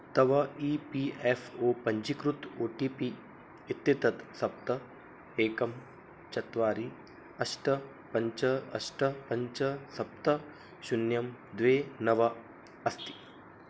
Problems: background sounds at intervals